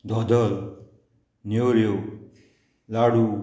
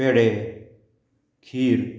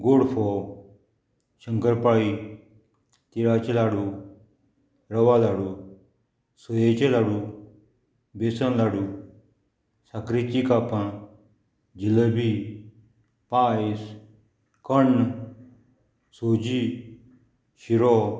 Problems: background sounds at intervals